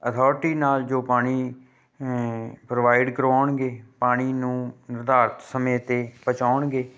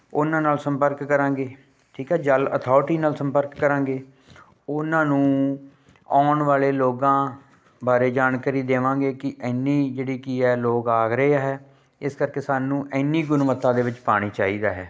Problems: background sounds at intervals